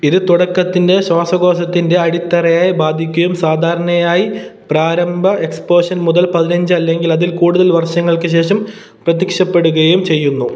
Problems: none marked